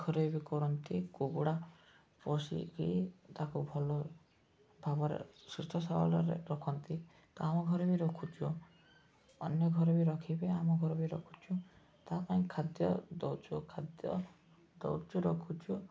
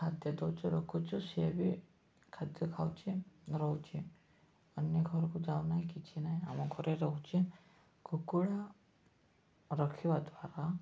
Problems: background sounds at intervals, low volume